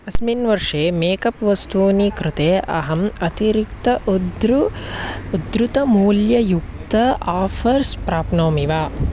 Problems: constant background noise